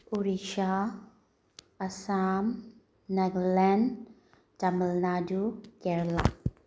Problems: background sounds at intervals